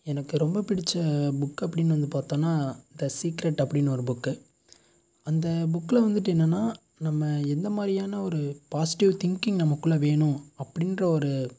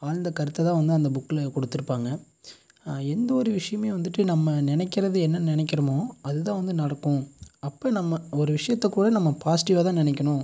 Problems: constant background noise